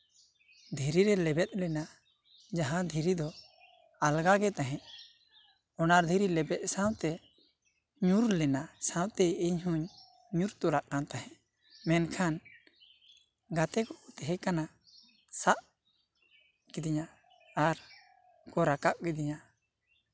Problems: constant background noise